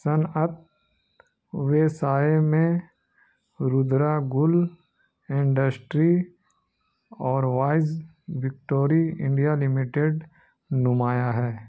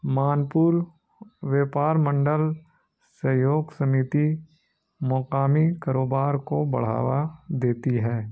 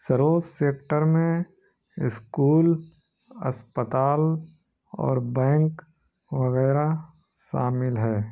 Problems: none marked